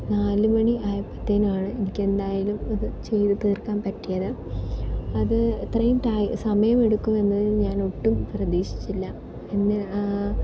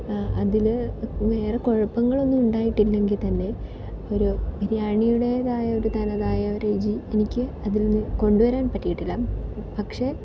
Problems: constant background noise